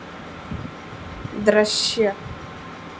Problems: constant background noise